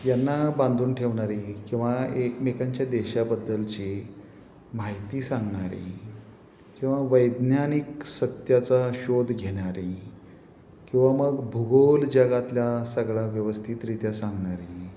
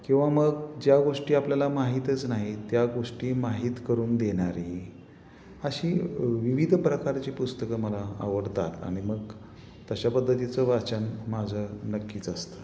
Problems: constant background noise, background conversations at intervals